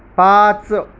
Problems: none marked